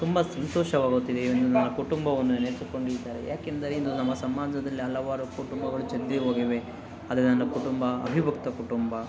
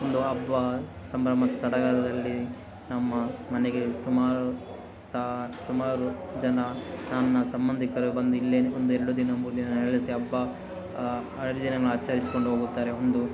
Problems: constant background noise